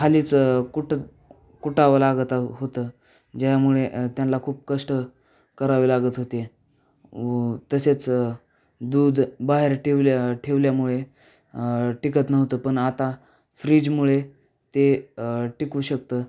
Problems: none marked